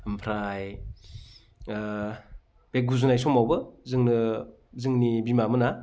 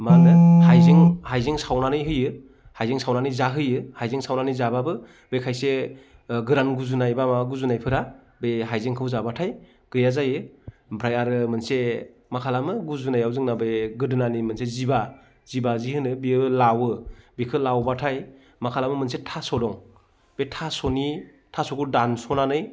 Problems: background sounds at intervals